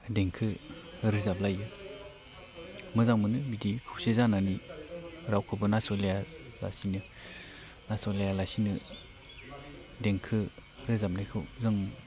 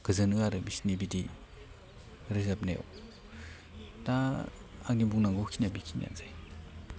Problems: none marked